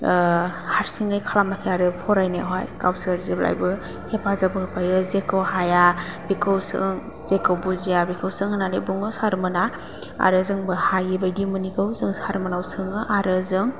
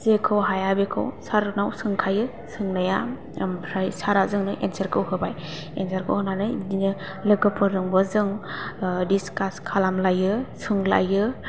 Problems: low volume